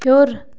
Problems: constant background noise